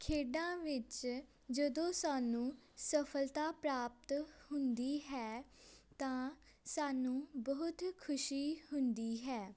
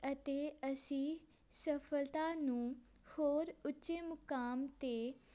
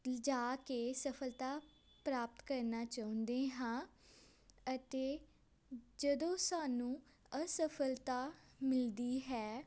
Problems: background sounds at intervals